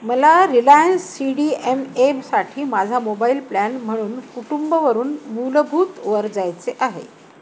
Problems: constant background noise